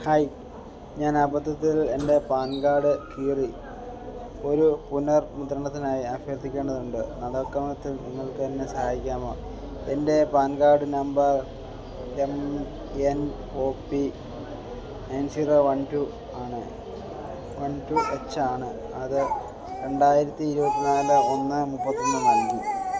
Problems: background sounds at intervals